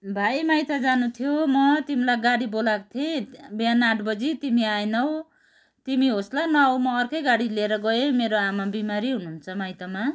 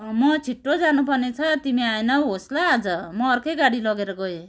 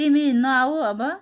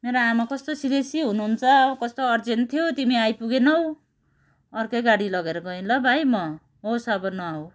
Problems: background sounds at intervals, continuous background conversations